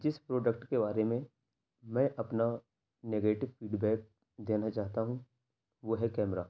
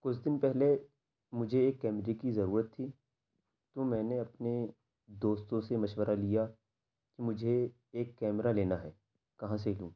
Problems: none marked